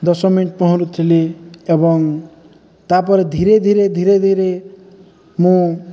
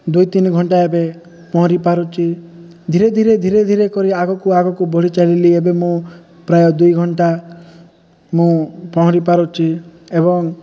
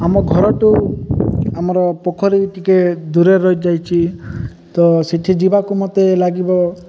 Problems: none marked